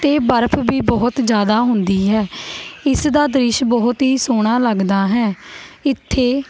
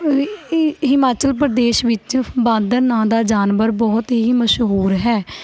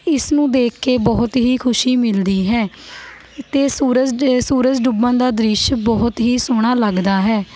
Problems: constant background noise